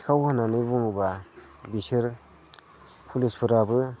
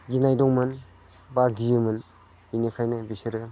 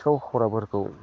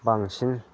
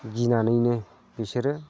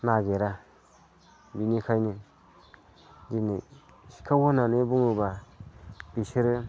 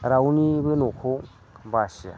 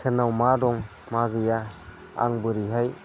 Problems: none marked